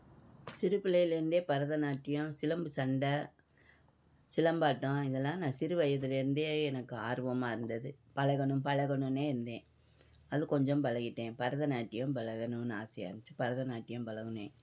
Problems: background sounds at intervals